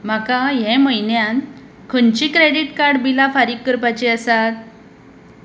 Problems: none marked